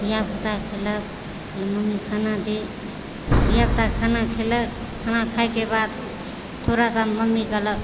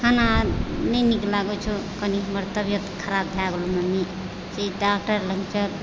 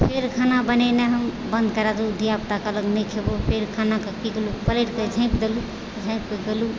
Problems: constant background noise